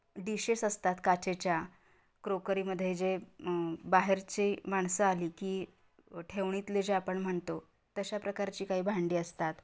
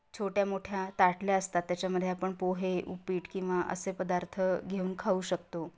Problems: constant background noise